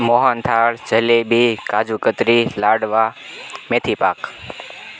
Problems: constant background noise